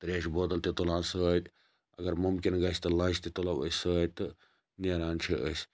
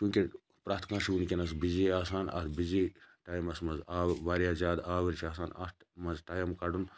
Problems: none marked